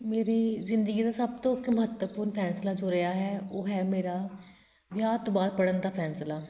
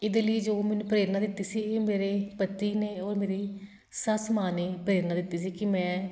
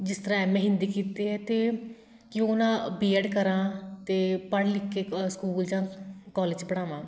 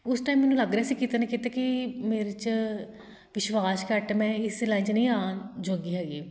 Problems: background sounds at intervals